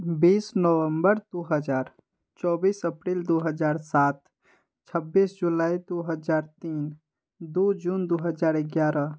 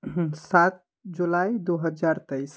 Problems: none marked